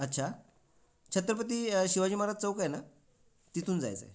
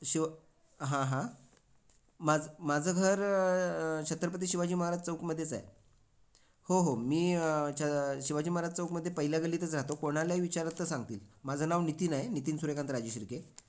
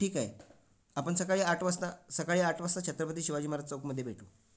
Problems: none marked